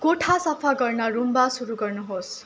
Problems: constant background noise